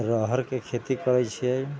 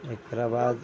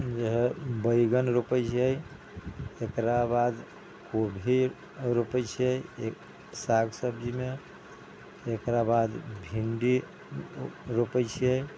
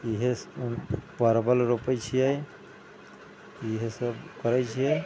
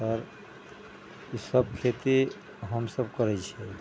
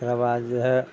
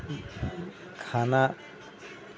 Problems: background sounds at intervals